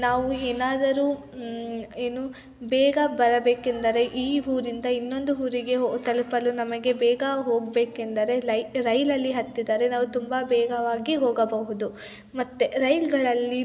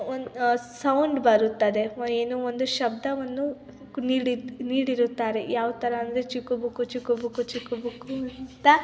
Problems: continuous background conversations